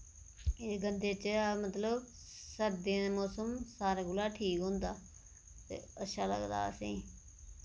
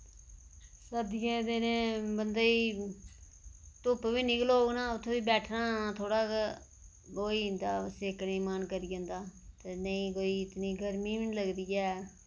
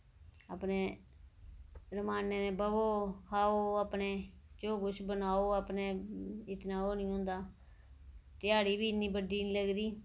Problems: none marked